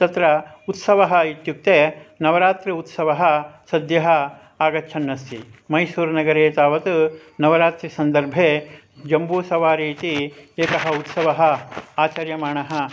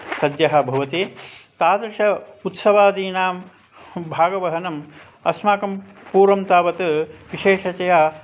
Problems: none marked